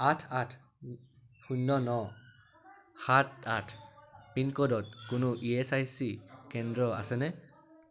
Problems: constant background noise, continuous background conversations